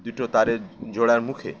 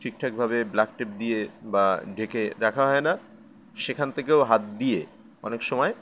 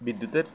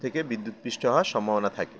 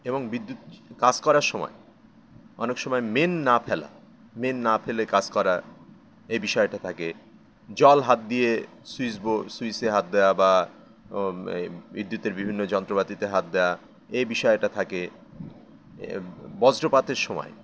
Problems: none marked